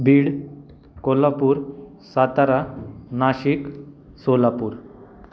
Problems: background sounds at intervals